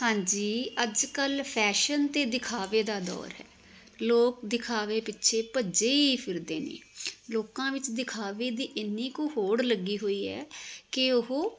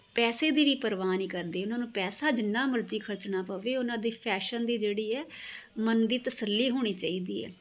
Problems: constant background noise